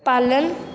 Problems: constant background noise